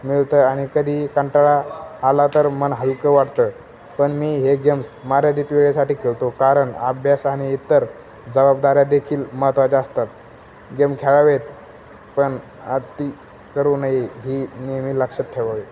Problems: constant background noise, background conversations at intervals